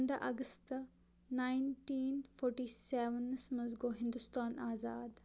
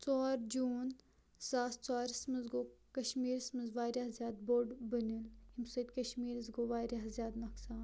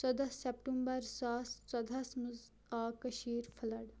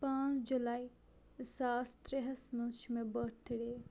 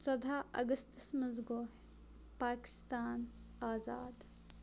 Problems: none marked